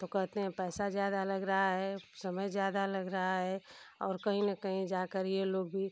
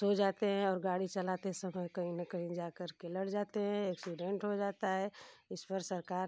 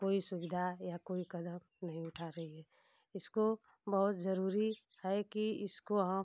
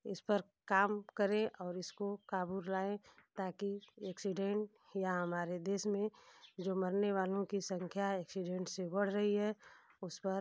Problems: none marked